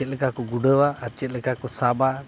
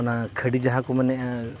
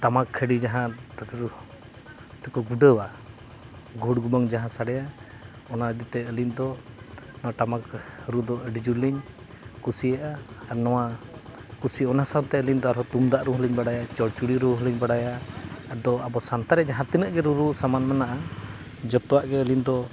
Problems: constant background noise